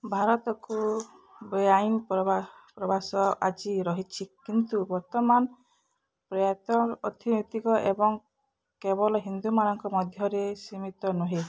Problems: none marked